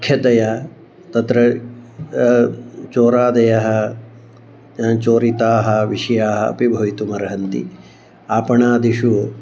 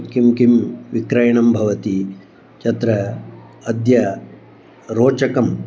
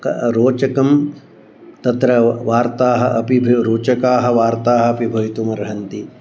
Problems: none marked